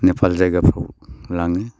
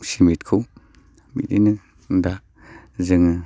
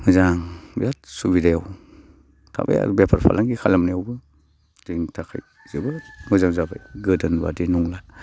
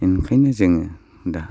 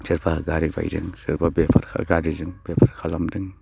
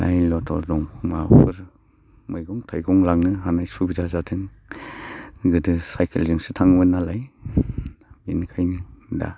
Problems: constant background noise